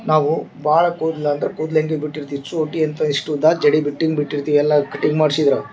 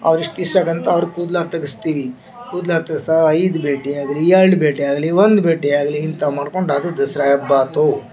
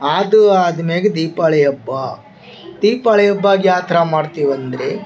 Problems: background sounds at intervals